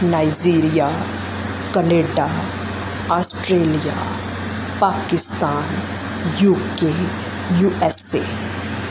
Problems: constant background noise